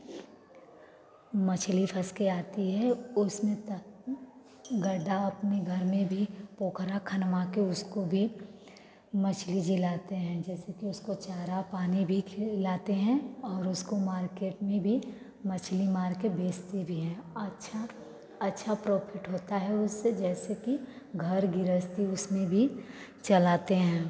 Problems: none marked